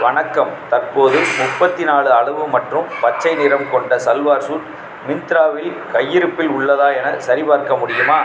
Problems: background sounds at intervals, background conversations at intervals